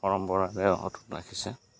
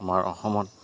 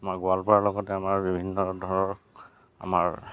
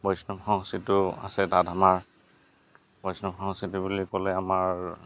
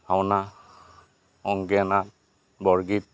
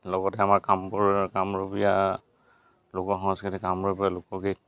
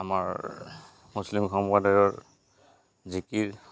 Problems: none marked